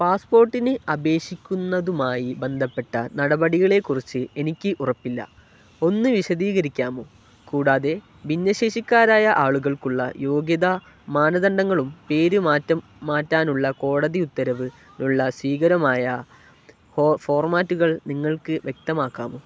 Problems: none marked